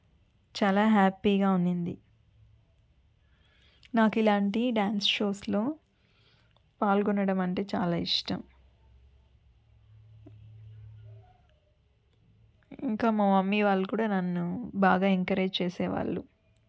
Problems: none marked